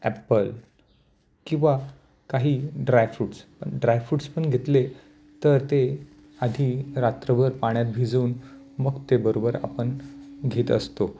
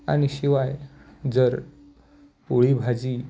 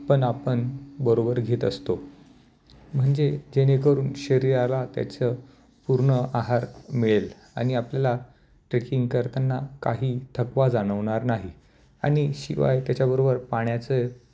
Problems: constant background noise